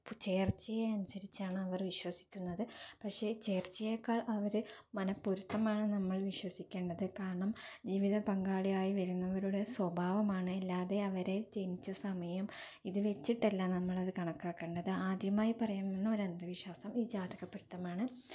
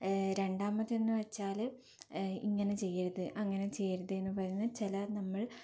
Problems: low volume